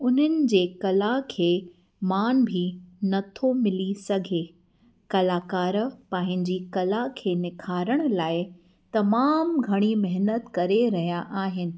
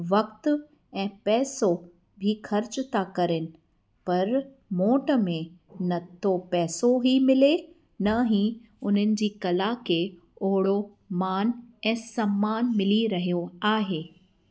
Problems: background sounds at intervals